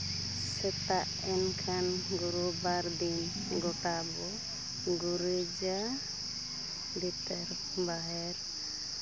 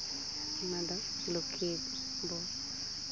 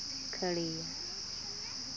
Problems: constant background noise, background conversations at intervals